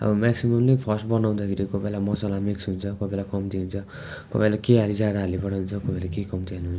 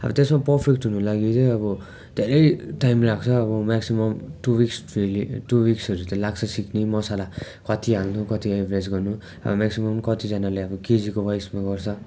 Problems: constant background noise, continuous background conversations